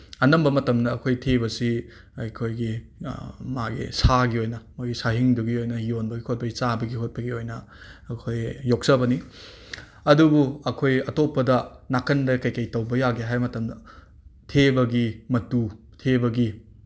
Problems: none marked